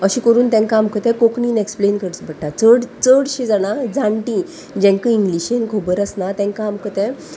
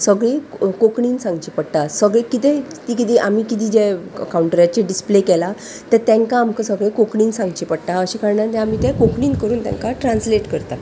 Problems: constant background noise, background conversations at intervals